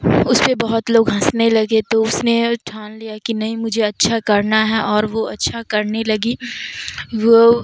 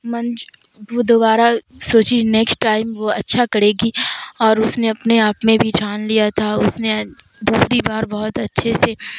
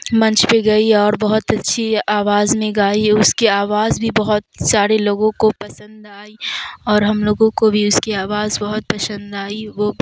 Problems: constant background noise